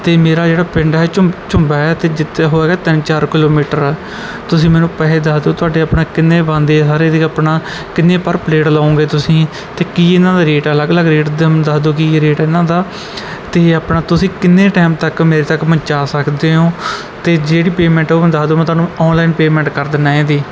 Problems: background sounds at intervals